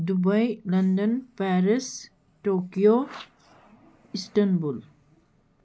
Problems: constant background noise